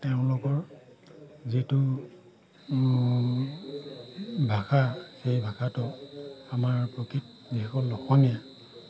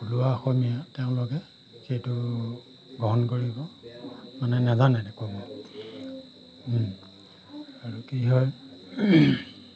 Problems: constant background noise